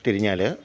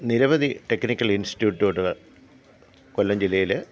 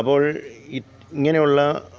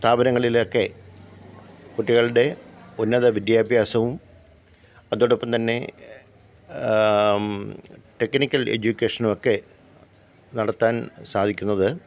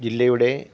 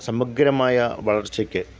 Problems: background sounds at intervals